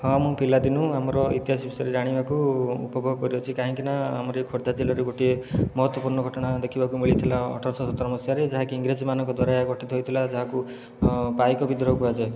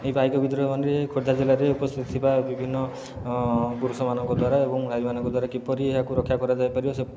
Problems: none marked